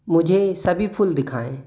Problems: none marked